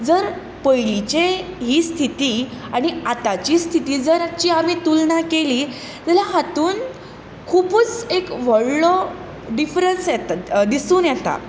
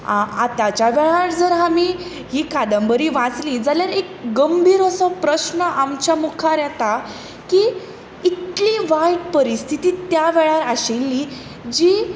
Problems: constant background noise